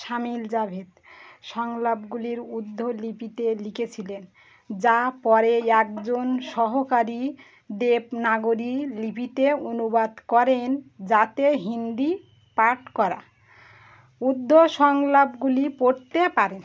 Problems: none marked